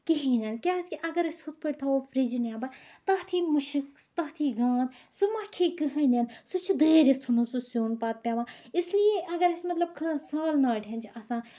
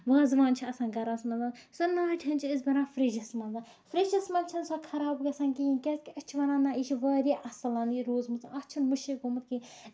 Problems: background sounds at intervals